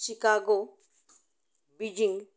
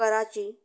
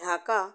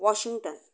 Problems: none marked